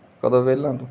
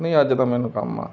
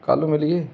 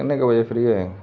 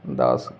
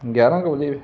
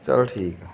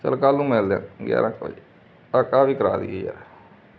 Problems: constant background noise